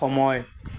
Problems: none marked